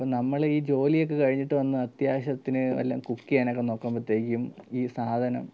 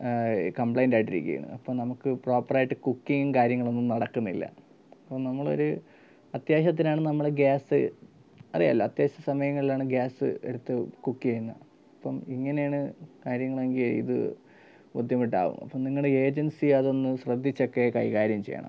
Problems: none marked